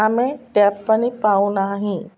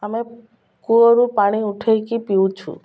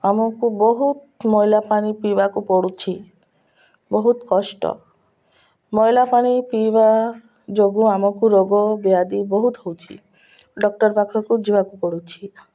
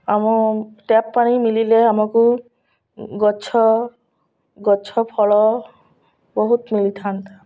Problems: none marked